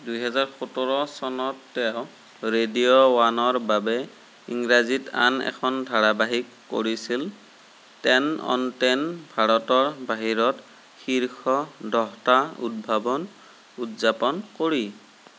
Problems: none marked